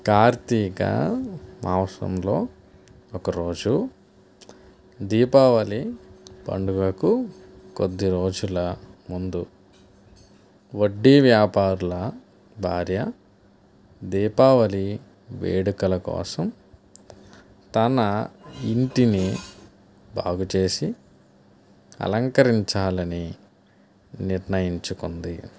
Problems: none marked